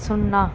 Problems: constant background noise